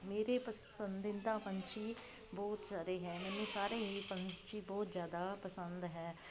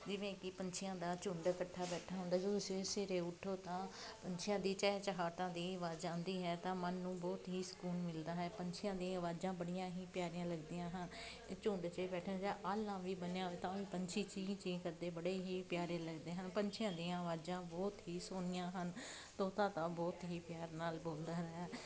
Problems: constant background noise